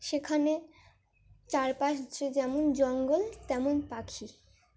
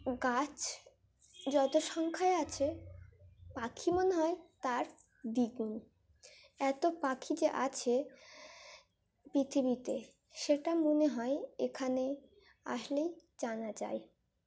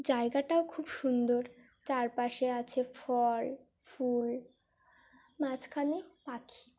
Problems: none marked